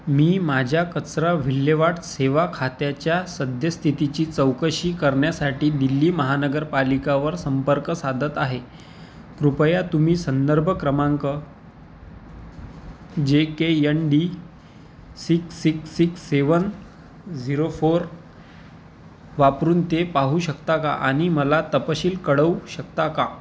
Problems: constant background noise